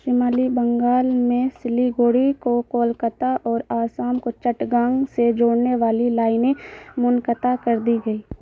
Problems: constant background noise